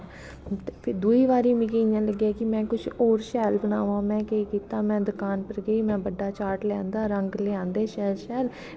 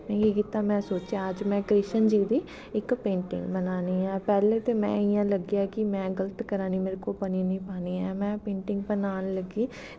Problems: none marked